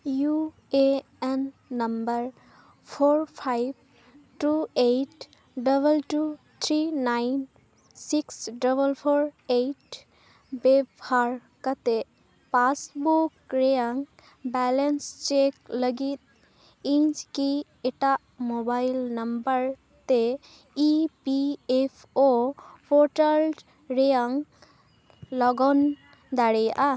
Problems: background sounds at intervals